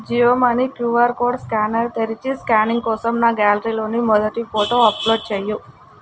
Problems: constant background noise